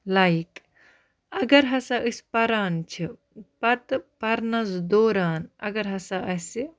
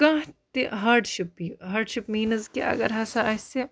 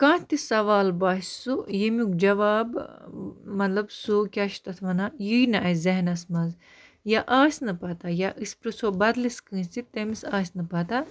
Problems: none marked